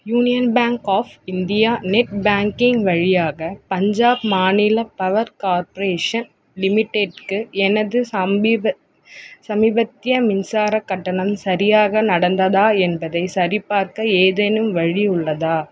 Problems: constant background noise, background conversations at intervals